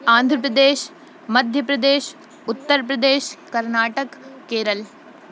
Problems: constant background noise